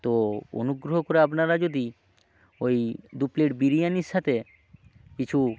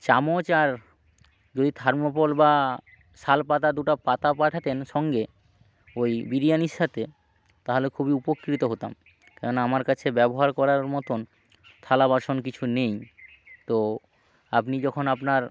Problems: background sounds at intervals